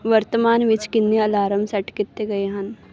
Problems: background sounds at intervals